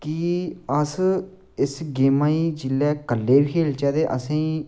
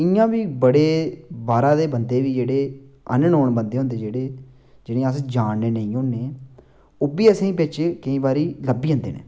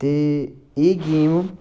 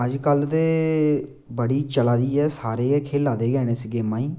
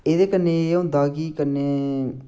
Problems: constant background noise